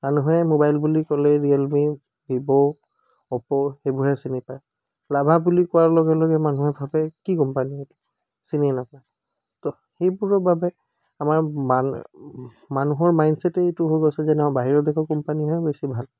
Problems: background sounds at intervals